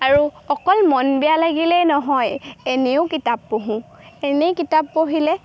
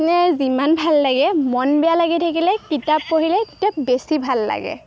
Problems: background sounds at intervals